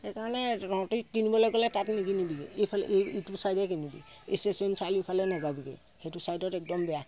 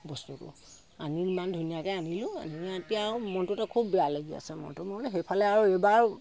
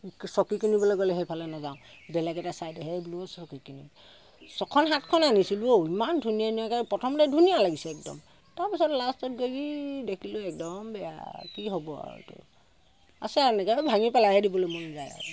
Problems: constant background noise